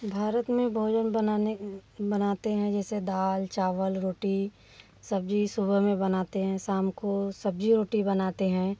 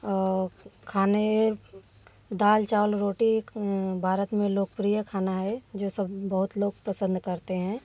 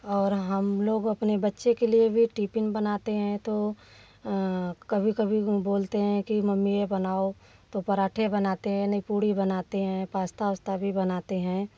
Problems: none marked